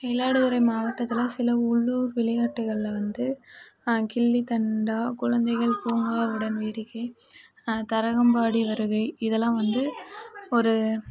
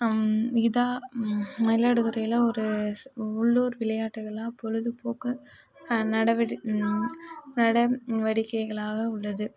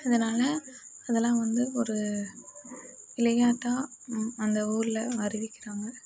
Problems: constant background noise